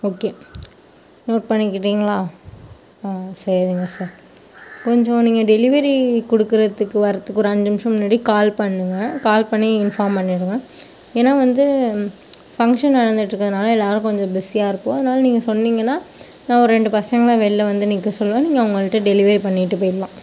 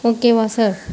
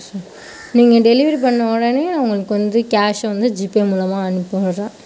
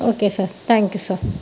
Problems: background sounds at intervals